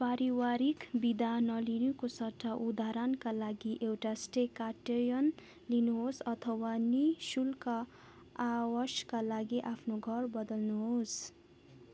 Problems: background sounds at intervals